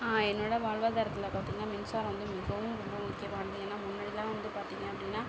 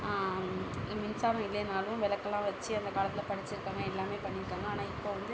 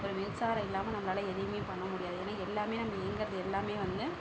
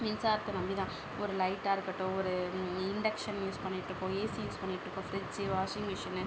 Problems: background conversations at intervals